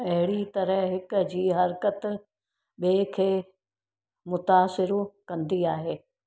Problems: none marked